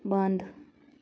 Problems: none marked